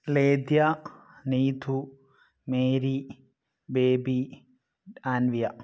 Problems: none marked